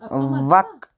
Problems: background sounds at intervals